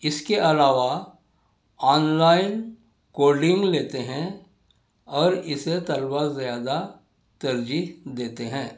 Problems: none marked